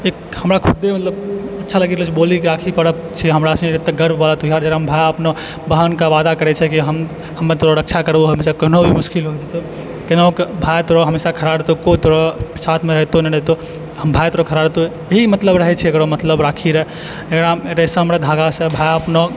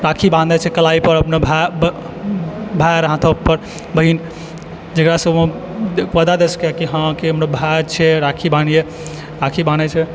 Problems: background sounds at intervals